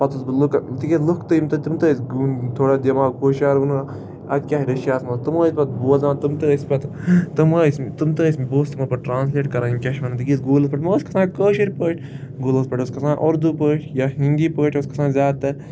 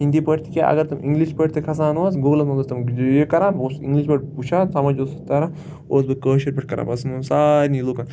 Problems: constant background noise